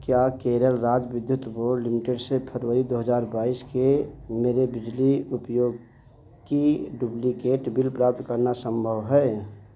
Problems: echo